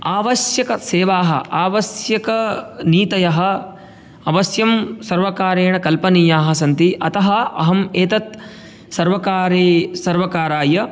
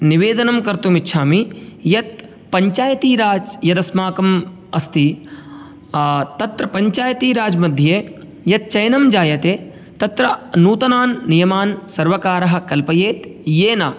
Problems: none marked